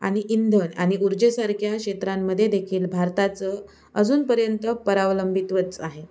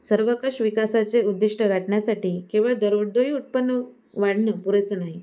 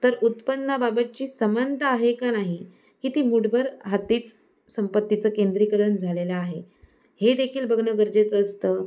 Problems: none marked